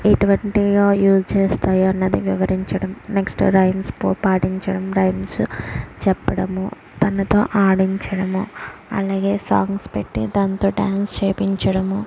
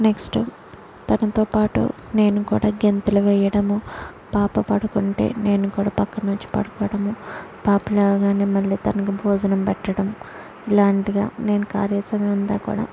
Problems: background sounds at intervals